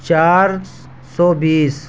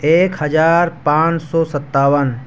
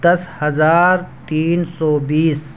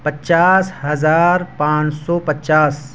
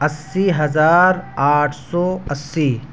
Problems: constant background noise, continuous background conversations